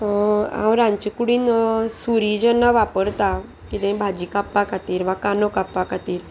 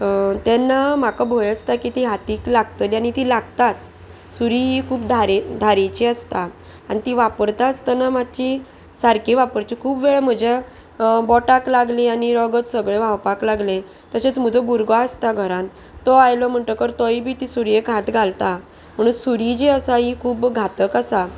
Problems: none marked